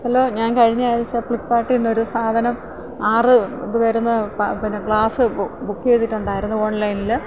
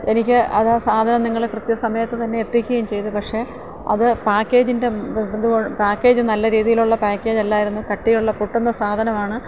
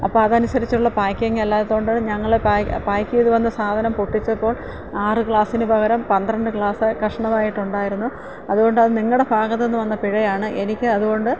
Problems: low volume